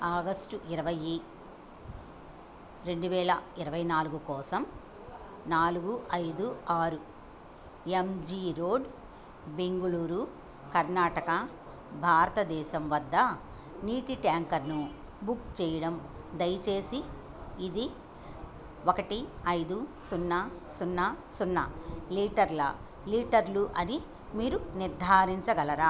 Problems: none marked